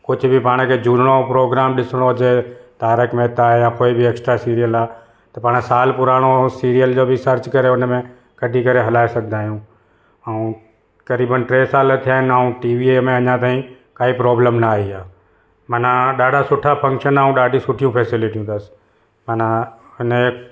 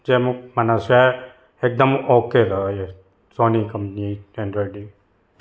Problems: none marked